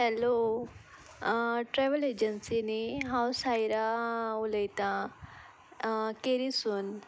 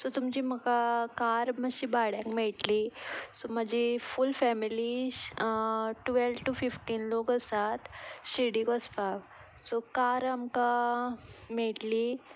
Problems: none marked